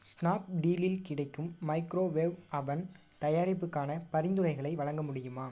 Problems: none marked